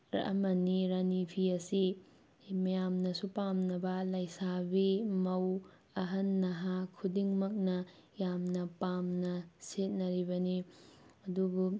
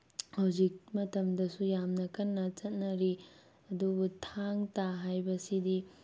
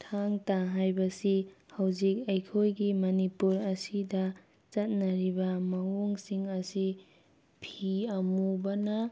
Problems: none marked